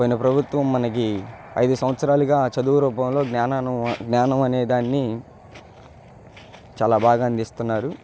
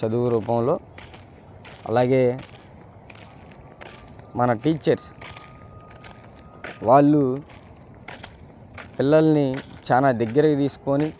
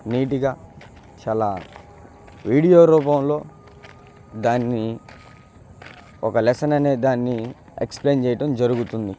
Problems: constant background noise